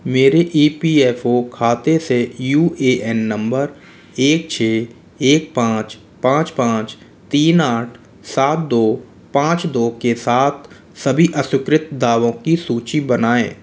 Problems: none marked